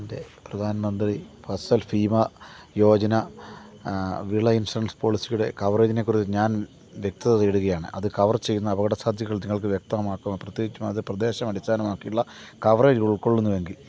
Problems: constant background noise, low volume